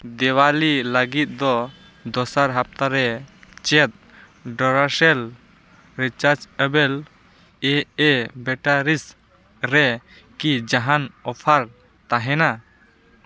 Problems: none marked